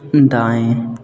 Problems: none marked